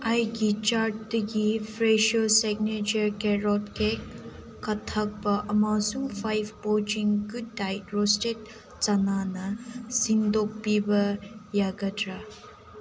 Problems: constant background noise